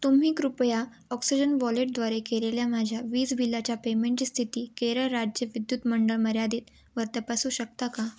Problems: none marked